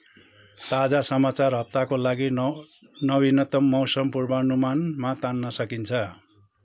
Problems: background sounds at intervals